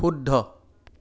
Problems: none marked